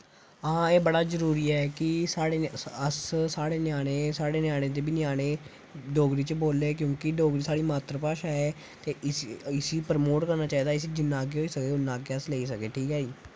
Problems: constant background noise